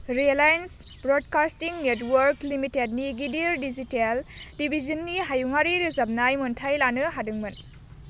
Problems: constant background noise